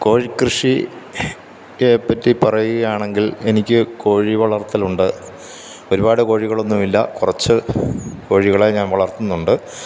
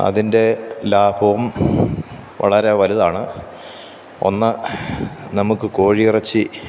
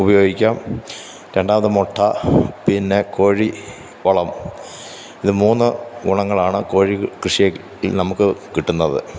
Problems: none marked